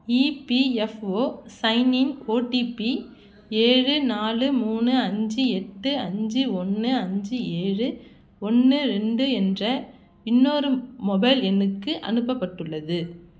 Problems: none marked